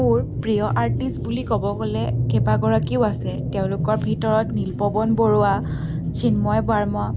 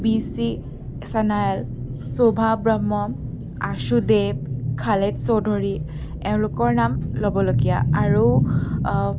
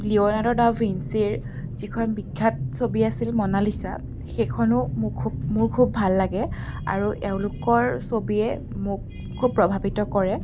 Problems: none marked